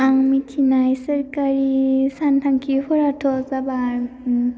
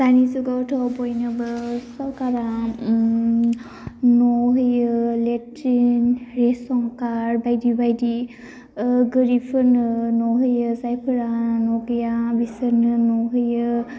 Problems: constant background noise